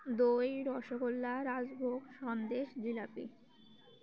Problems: none marked